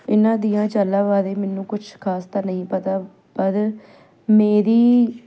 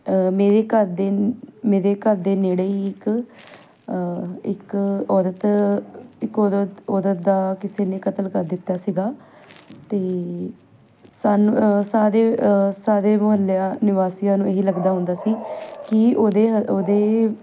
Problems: background sounds at intervals